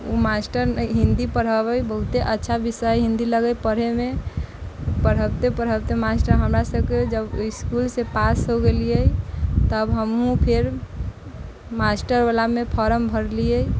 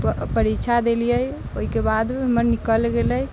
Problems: none marked